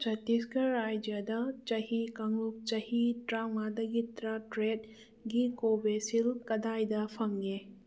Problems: none marked